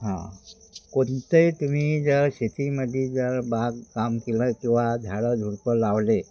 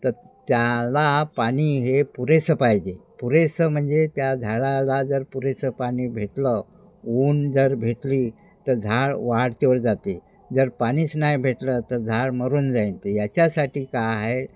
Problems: none marked